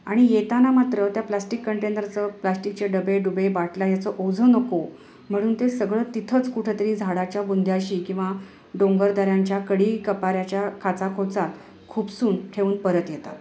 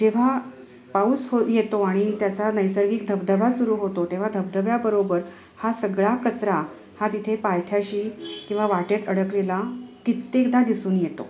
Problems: background sounds at intervals, continuous background conversations